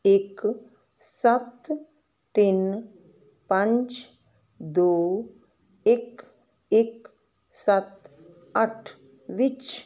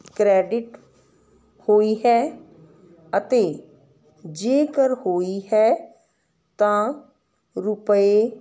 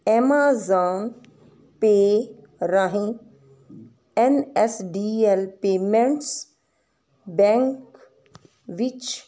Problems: none marked